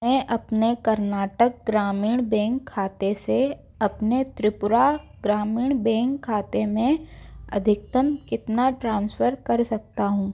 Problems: none marked